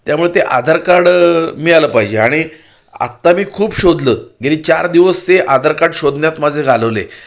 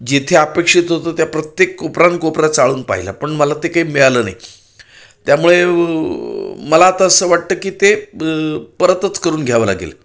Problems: background sounds at intervals